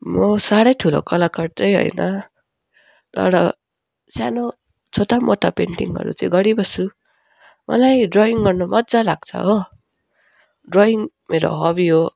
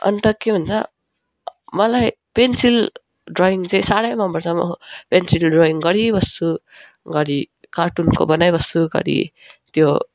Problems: constant background noise